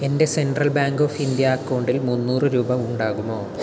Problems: constant background noise